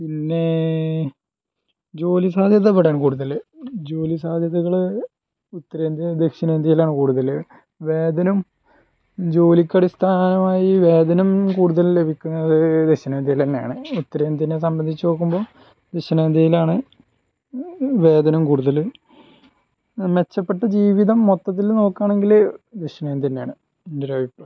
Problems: low volume